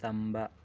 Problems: none marked